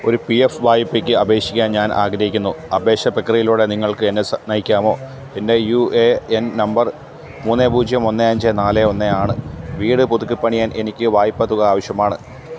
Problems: none marked